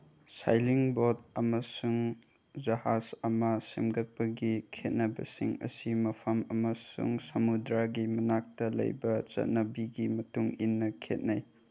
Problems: low volume